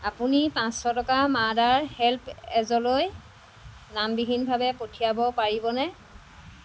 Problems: constant background noise